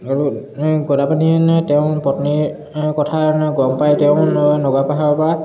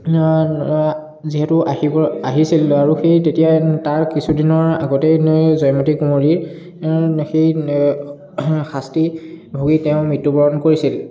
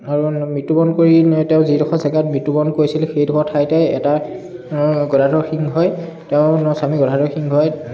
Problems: background conversations at intervals